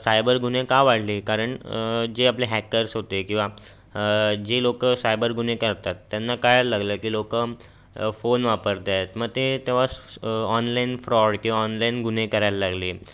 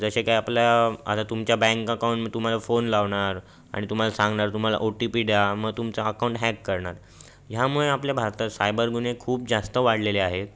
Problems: background sounds at intervals